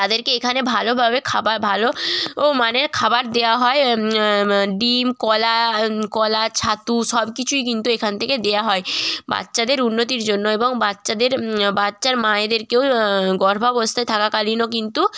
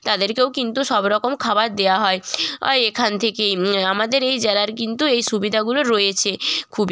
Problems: background sounds at intervals